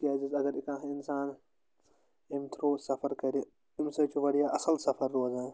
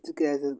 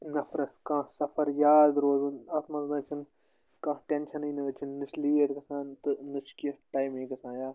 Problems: constant background noise